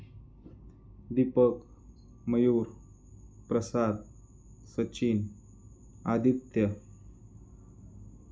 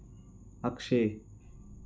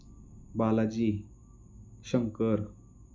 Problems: constant background noise, low volume